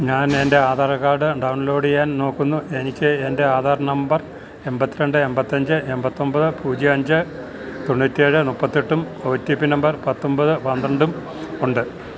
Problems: constant background noise